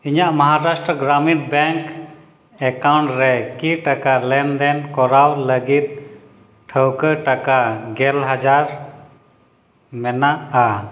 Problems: echo